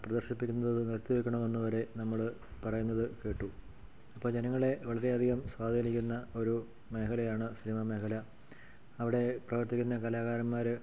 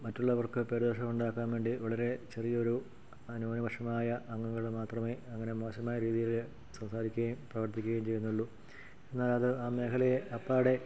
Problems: none marked